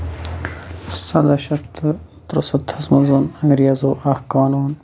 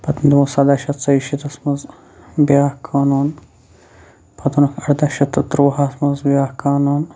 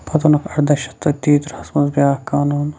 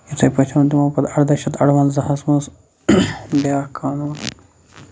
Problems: constant background noise